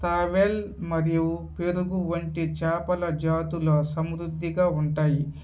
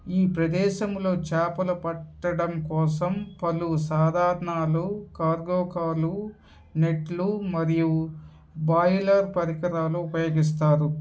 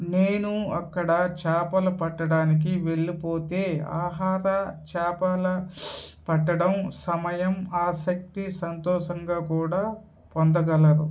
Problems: background sounds at intervals